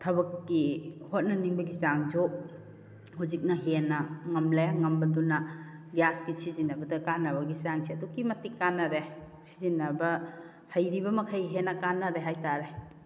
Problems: none marked